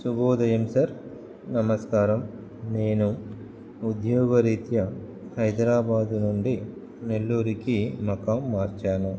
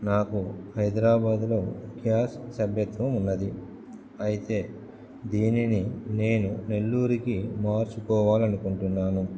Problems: background sounds at intervals